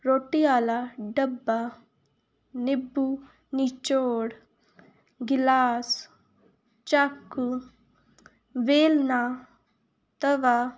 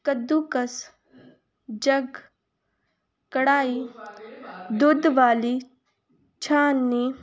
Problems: none marked